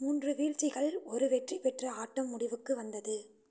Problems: low volume